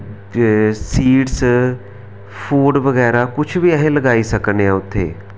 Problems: none marked